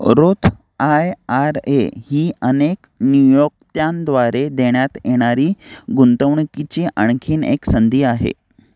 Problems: background sounds at intervals